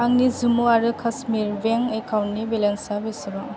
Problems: constant background noise